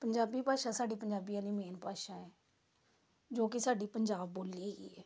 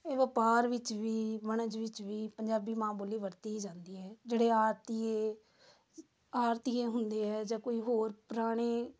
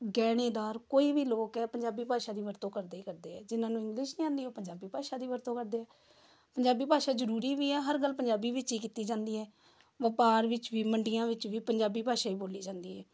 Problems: background sounds at intervals